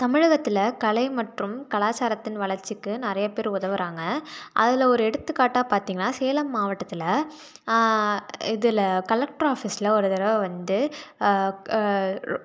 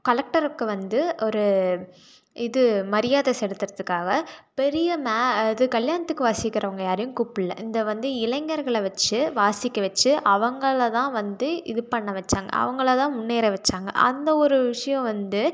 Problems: none marked